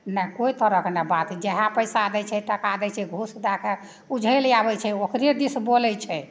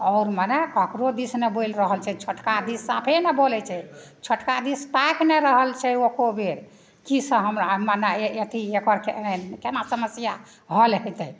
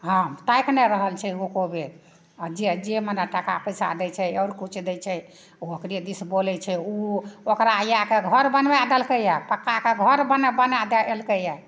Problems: none marked